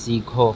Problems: background sounds at intervals